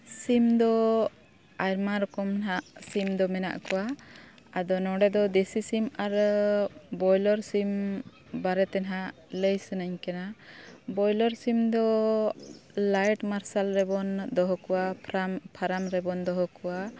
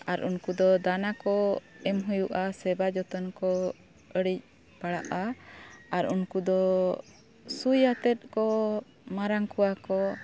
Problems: background sounds at intervals